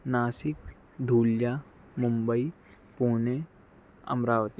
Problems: none marked